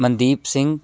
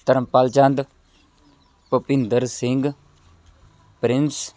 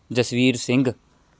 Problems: none marked